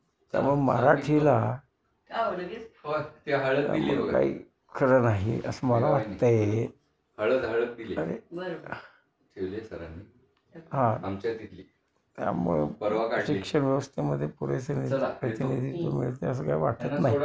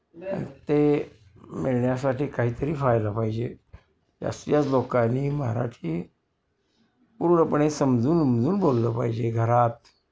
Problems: constant background noise, background conversations at intervals